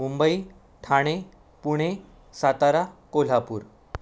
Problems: none marked